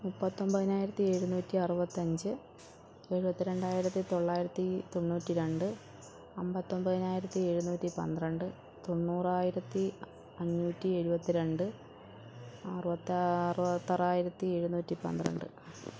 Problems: background sounds at intervals, low volume